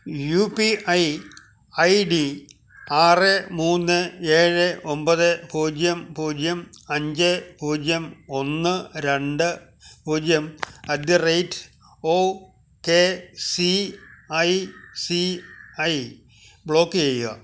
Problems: none marked